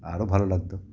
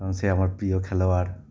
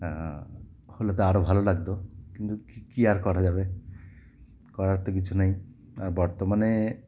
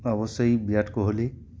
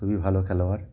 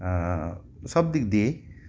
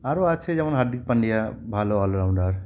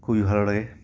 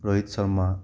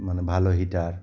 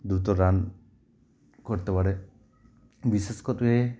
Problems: background sounds at intervals